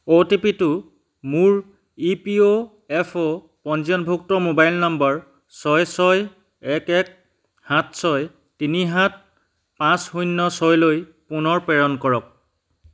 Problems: none marked